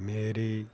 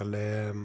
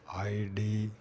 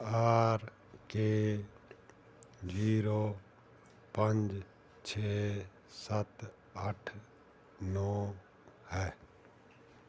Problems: none marked